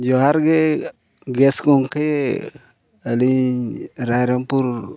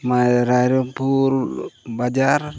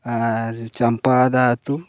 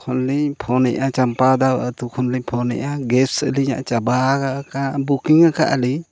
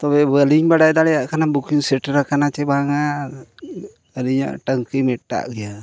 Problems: none marked